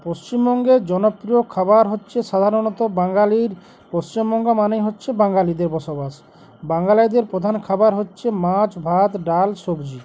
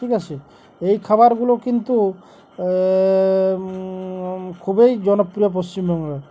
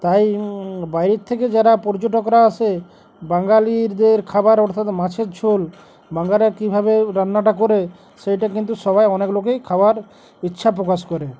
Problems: none marked